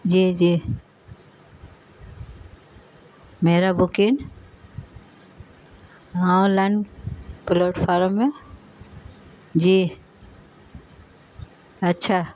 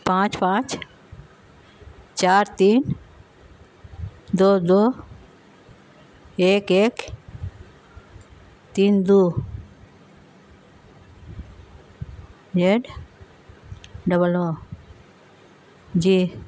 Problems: constant background noise